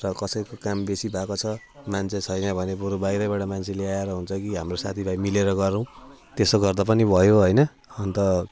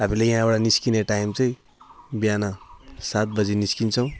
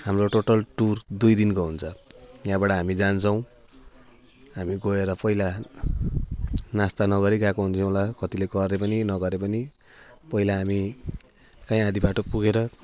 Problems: none marked